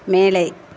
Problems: constant background noise